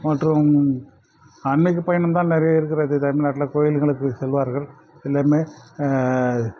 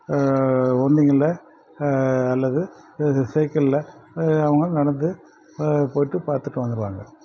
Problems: constant background noise